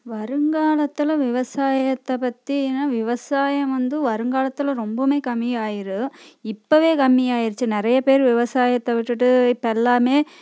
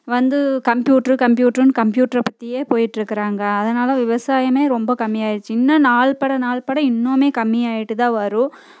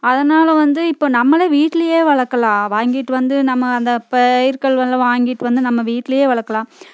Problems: constant background noise